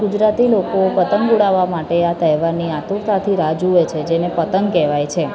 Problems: constant background noise, continuous background conversations, low volume